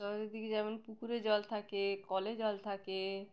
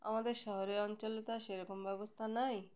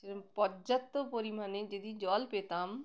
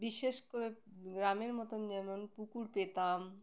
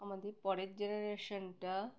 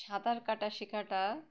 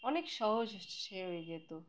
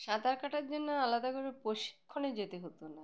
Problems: background sounds at intervals